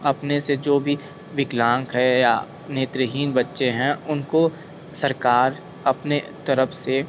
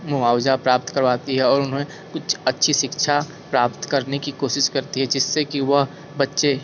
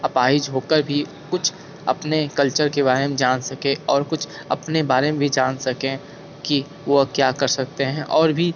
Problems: constant background noise